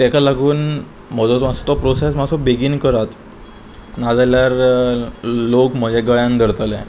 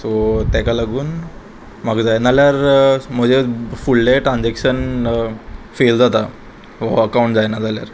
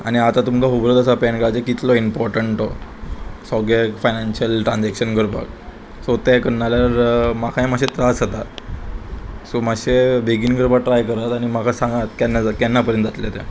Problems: none marked